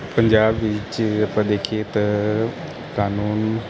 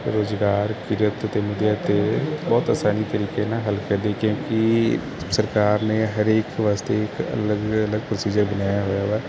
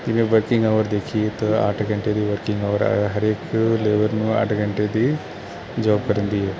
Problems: none marked